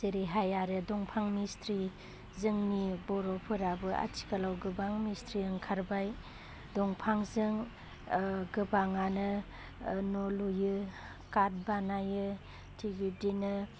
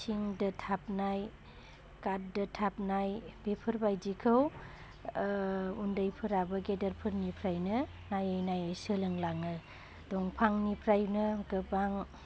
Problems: constant background noise